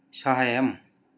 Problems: none marked